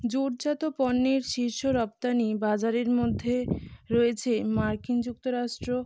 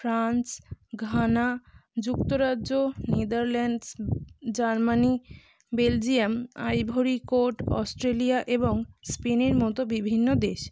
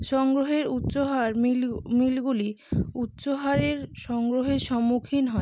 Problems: none marked